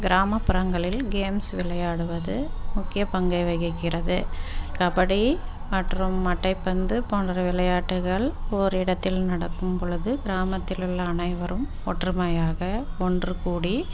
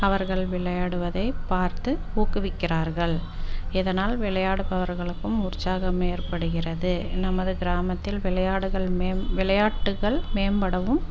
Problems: constant background noise